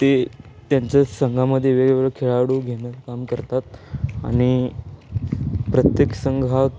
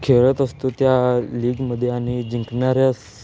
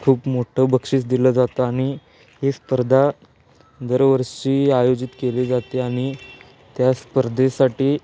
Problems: constant background noise